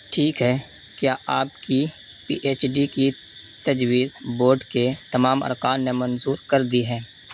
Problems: constant background noise